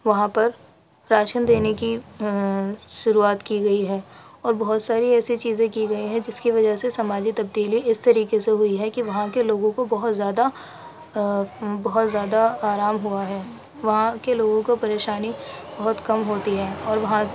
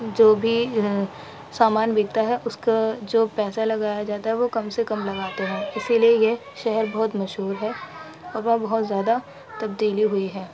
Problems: constant background noise, background conversations at intervals